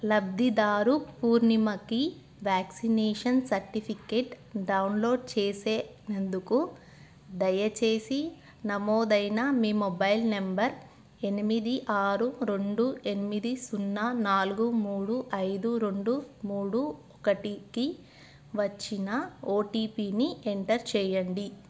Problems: constant background noise